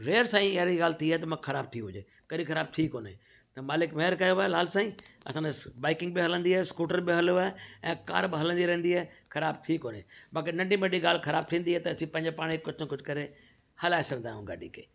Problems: background sounds at intervals